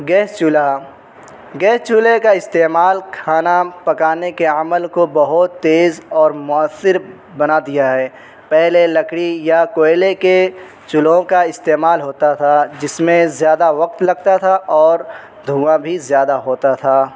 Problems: constant background noise